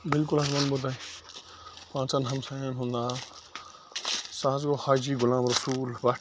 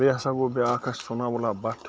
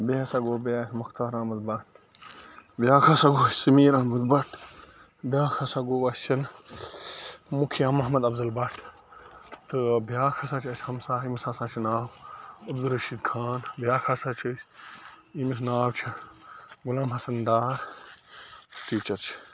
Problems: constant background noise